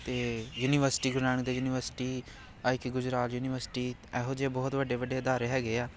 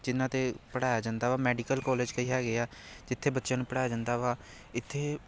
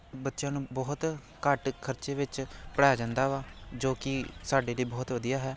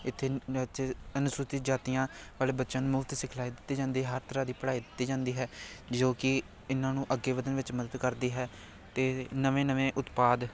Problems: none marked